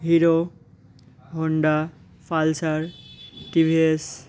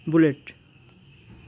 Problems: constant background noise